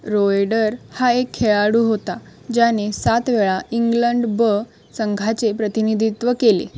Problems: constant background noise